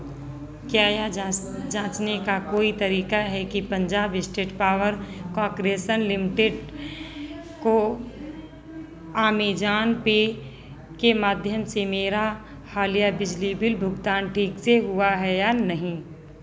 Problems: none marked